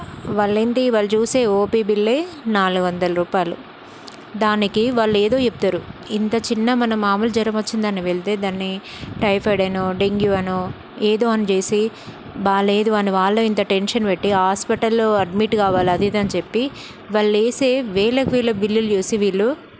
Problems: constant background noise